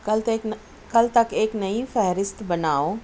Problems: constant background noise, low volume